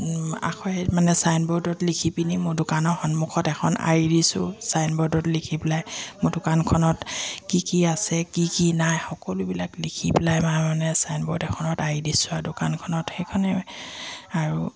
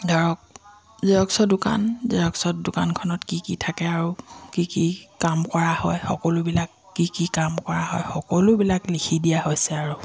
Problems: none marked